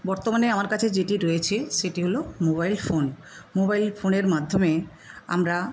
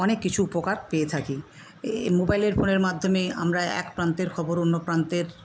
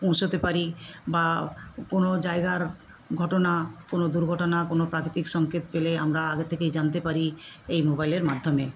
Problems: none marked